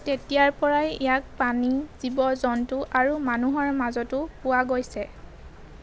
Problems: none marked